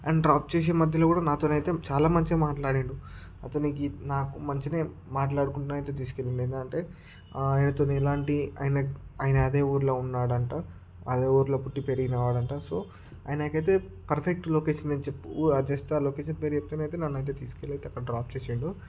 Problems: none marked